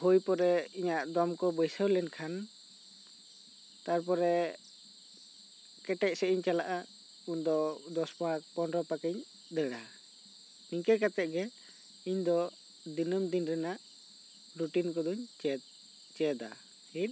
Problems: none marked